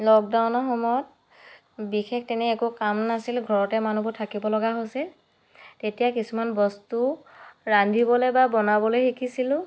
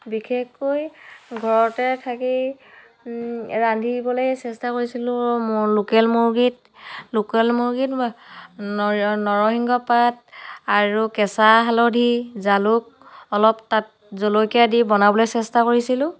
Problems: none marked